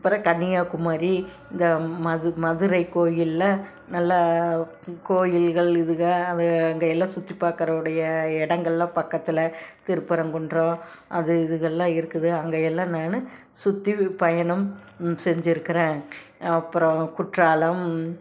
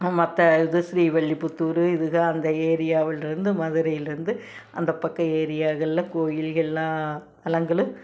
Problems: background sounds at intervals